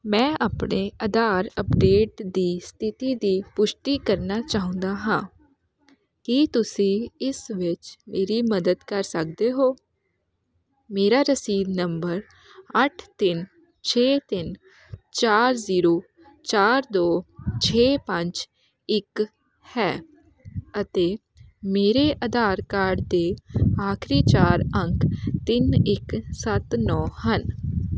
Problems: none marked